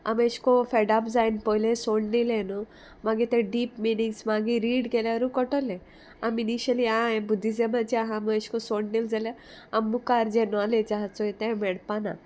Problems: none marked